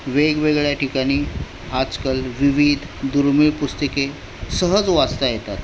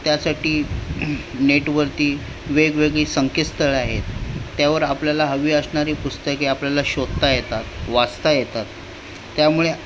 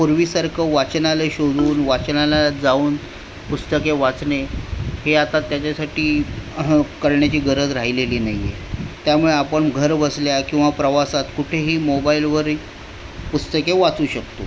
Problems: constant background noise